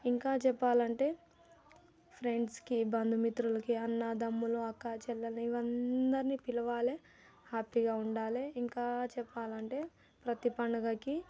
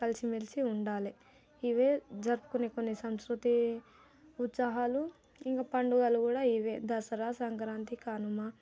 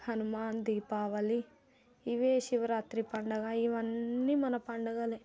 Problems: none marked